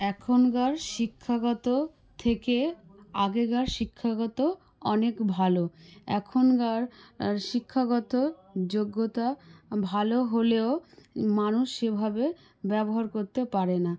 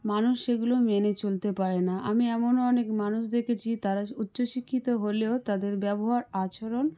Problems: background conversations at intervals